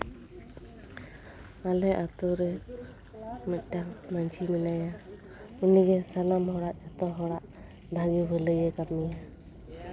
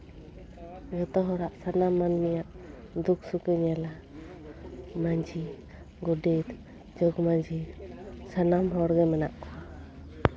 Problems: background conversations at intervals